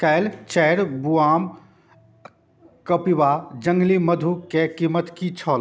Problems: none marked